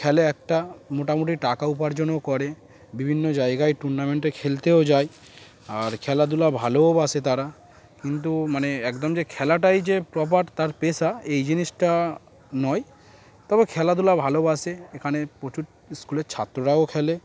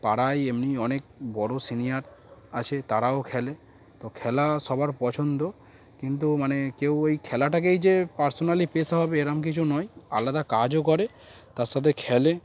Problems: constant background noise